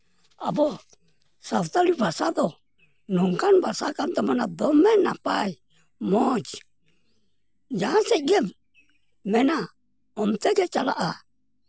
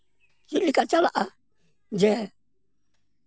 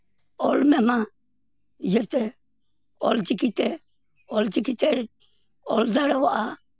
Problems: none marked